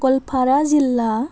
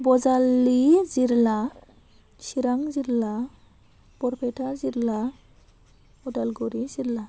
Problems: none marked